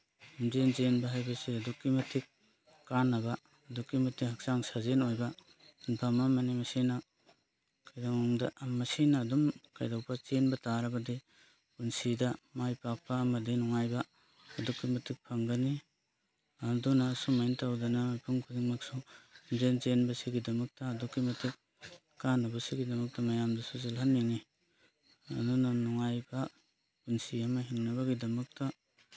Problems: none marked